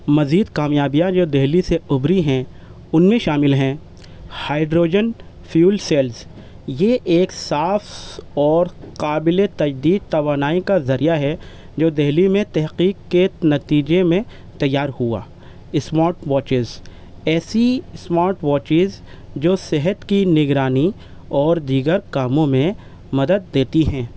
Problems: constant background noise